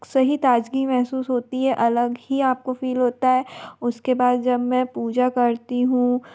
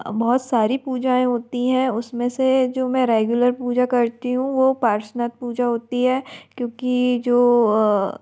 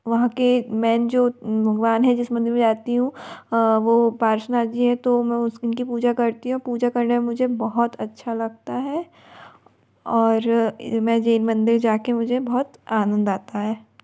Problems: none marked